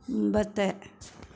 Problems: none marked